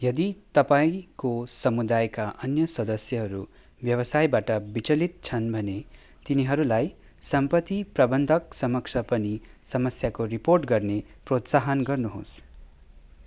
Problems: background sounds at intervals